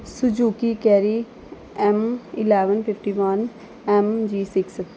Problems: none marked